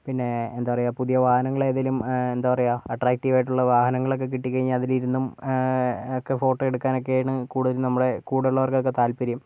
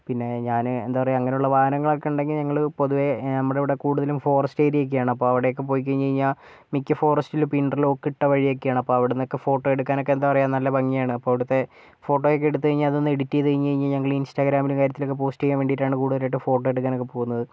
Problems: low volume